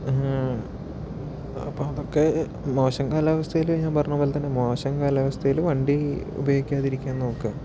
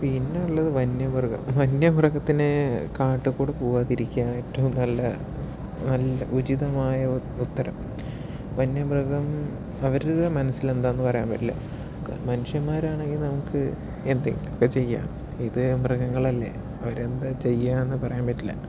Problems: background sounds at intervals, low volume